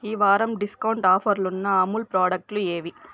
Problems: constant background noise